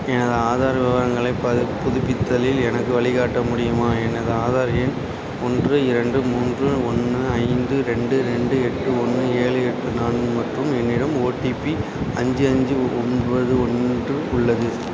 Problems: constant background noise